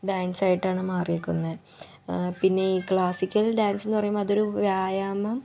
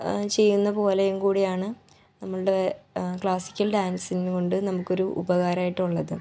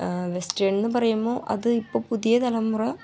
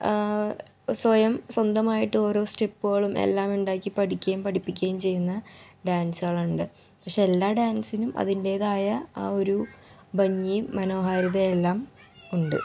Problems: background sounds at intervals, low volume